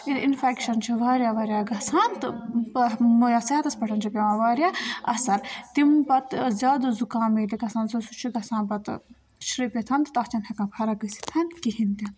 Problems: continuous background conversations